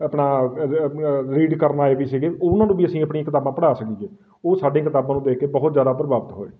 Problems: none marked